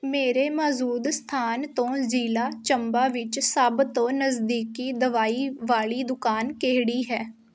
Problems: none marked